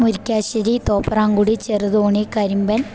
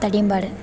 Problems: none marked